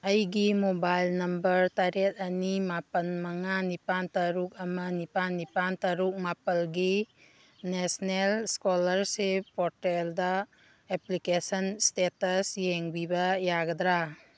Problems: background sounds at intervals